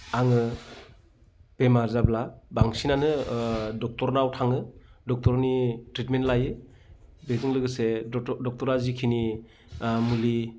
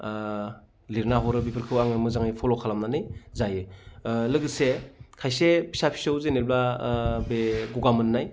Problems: background sounds at intervals